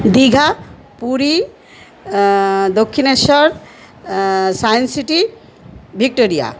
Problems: constant background noise, background conversations at intervals